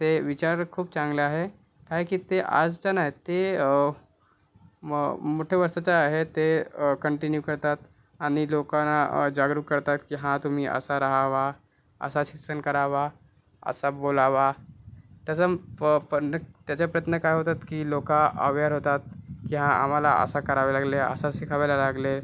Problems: none marked